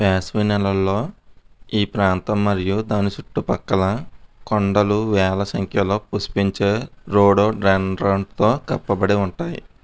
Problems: none marked